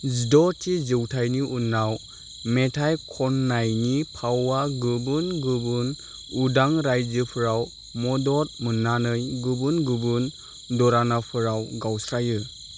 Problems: none marked